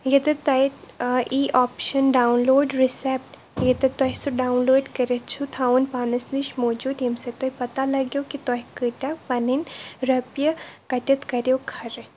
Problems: constant background noise